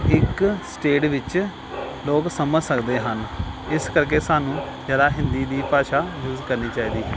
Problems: none marked